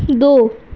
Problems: none marked